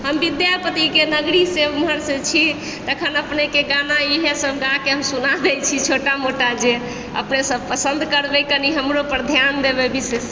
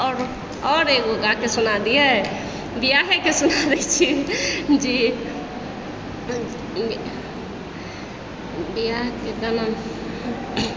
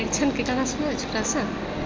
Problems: background sounds at intervals, background conversations at intervals